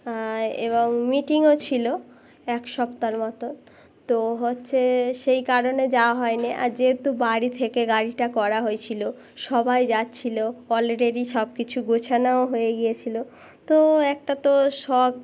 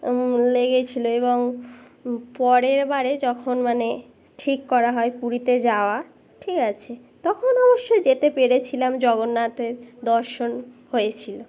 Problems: constant background noise